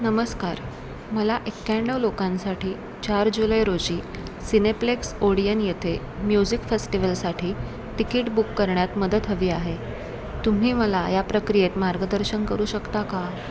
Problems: continuous background conversations